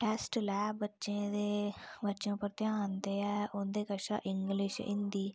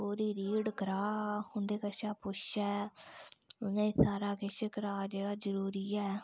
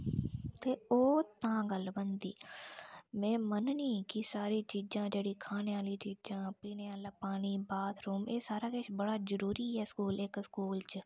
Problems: low volume